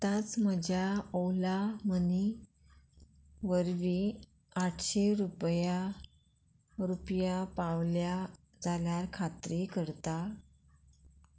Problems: none marked